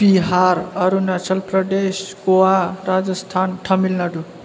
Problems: constant background noise